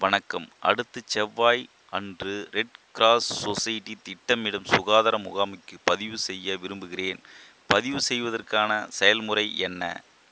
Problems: constant background noise